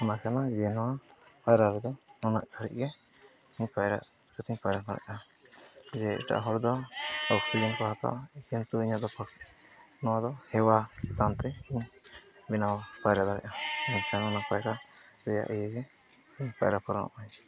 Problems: background sounds at intervals